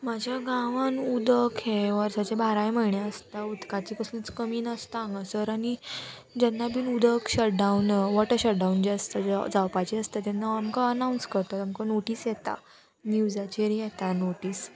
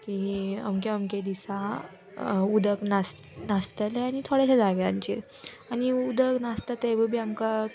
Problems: none marked